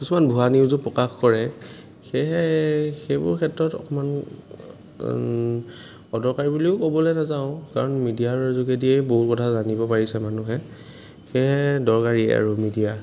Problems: background sounds at intervals